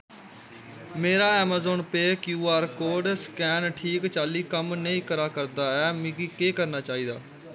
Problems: background sounds at intervals